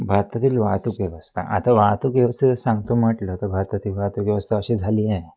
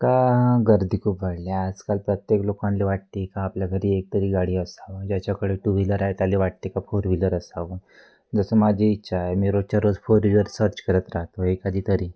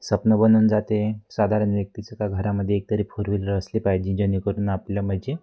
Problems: constant background noise